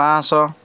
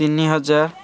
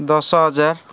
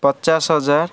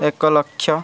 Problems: none marked